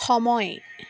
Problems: constant background noise